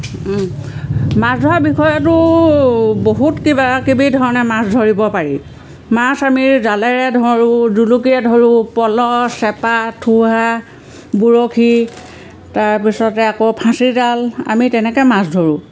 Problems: none marked